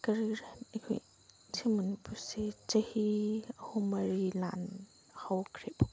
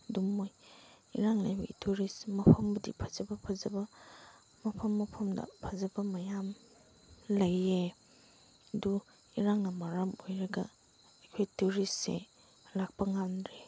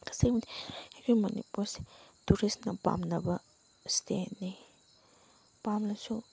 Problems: background sounds at intervals, background conversations at intervals